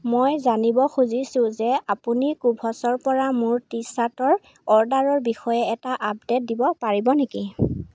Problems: constant background noise